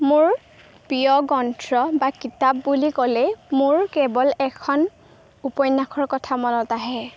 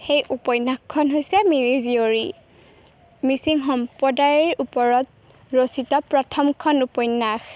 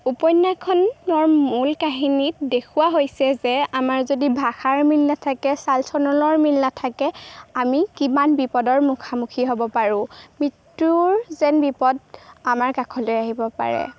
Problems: background sounds at intervals